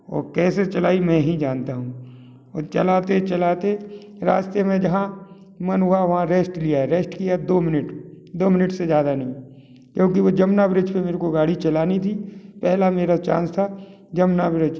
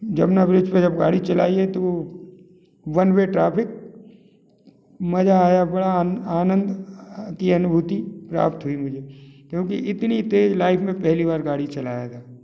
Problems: none marked